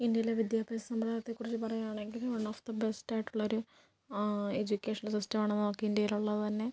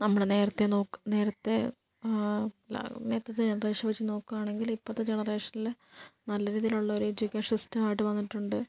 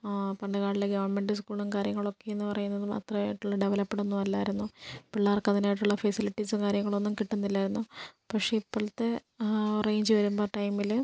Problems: low volume